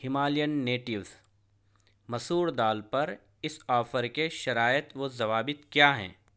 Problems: none marked